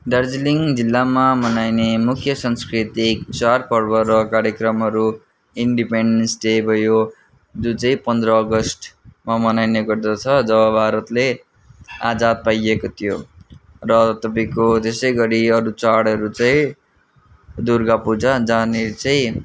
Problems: none marked